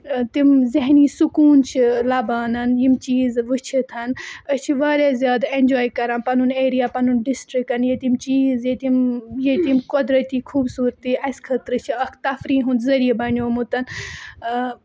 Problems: constant background noise